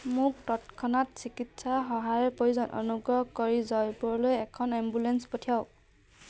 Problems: none marked